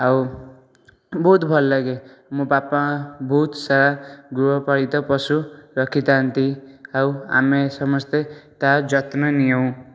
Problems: none marked